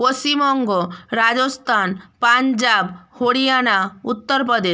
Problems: none marked